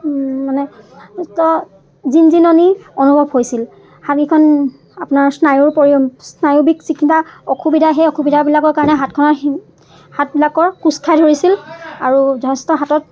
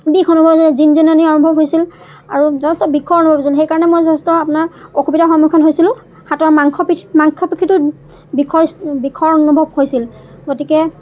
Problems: constant background noise, background conversations at intervals